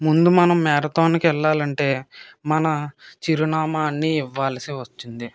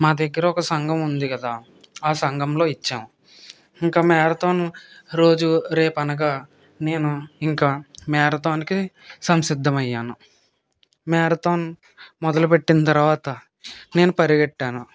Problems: none marked